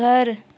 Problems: none marked